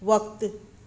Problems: constant background noise